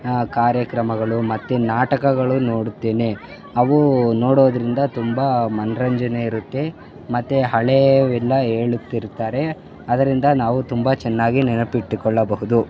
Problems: constant background noise, background conversations at intervals